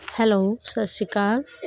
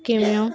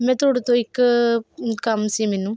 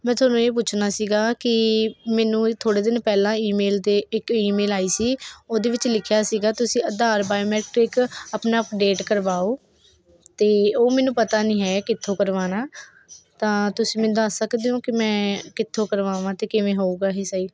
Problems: constant background noise